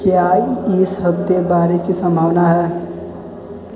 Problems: constant background noise